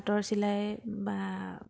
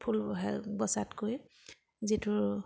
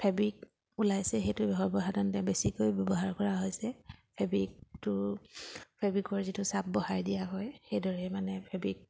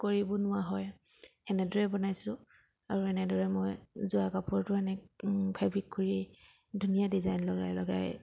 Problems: background sounds at intervals